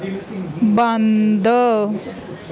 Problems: continuous background conversations